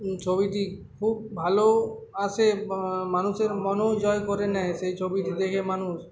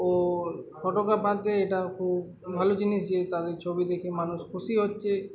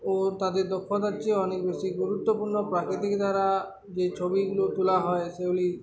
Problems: constant background noise, continuous background conversations